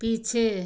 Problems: none marked